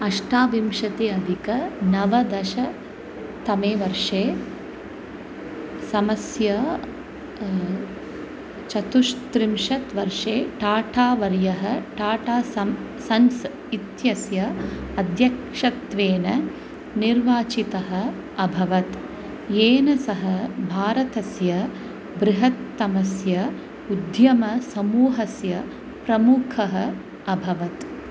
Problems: constant background noise